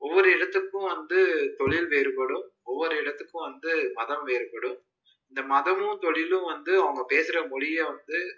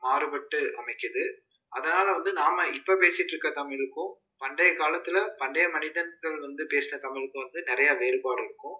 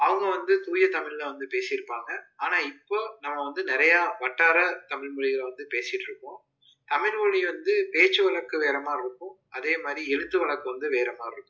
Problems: low volume